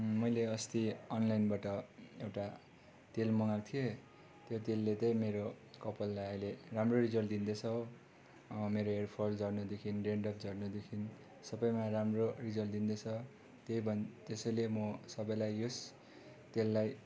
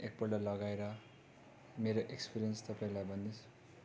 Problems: constant background noise